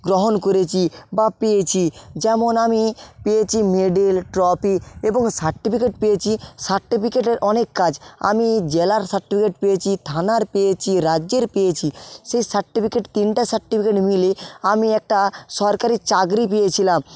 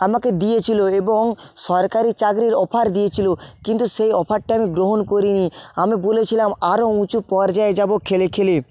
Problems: constant background noise